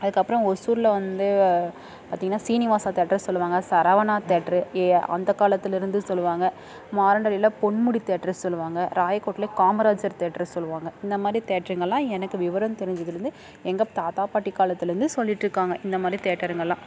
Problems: background sounds at intervals, background conversations at intervals